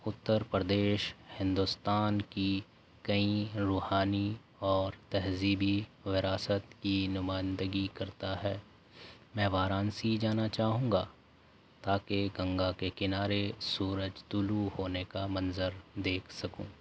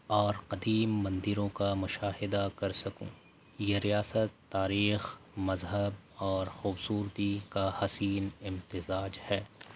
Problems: constant background noise